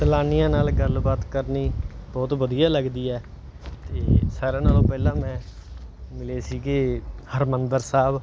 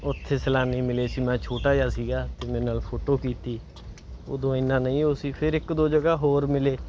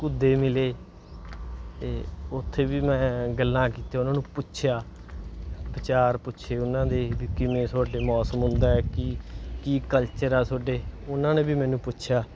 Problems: background sounds at intervals